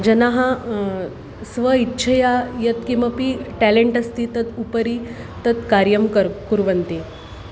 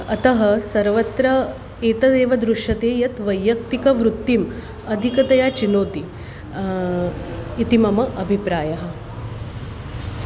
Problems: constant background noise